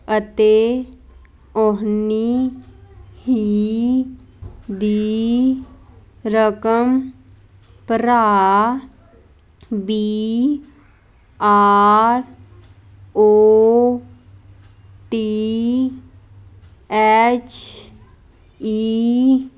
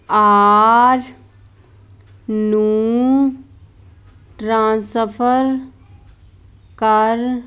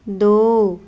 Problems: constant background noise